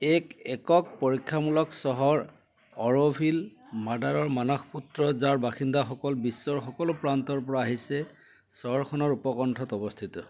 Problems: background sounds at intervals